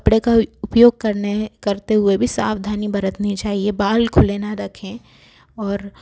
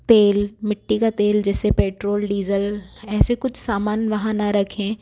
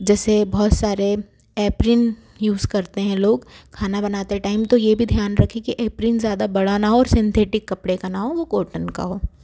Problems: constant background noise